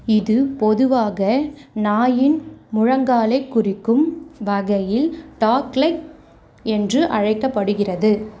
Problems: none marked